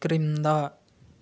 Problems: constant background noise